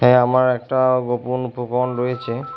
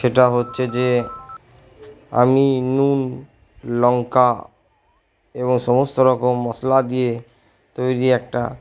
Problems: background sounds at intervals